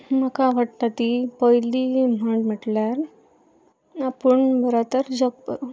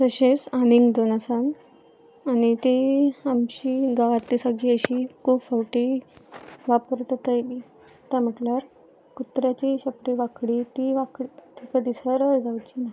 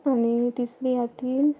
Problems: constant background noise